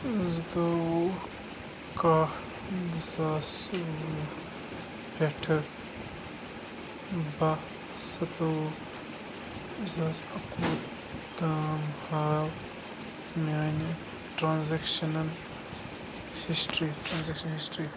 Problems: constant background noise